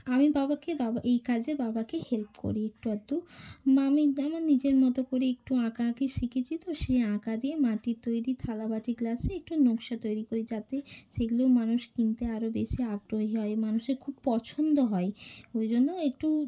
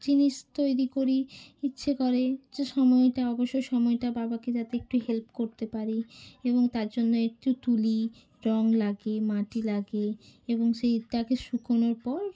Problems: none marked